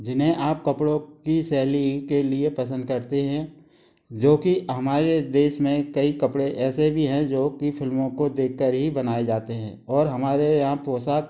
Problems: constant background noise